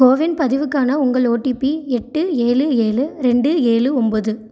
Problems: none marked